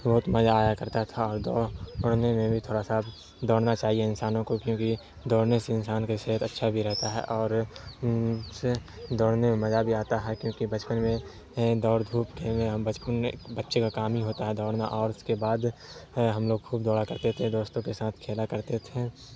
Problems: constant background noise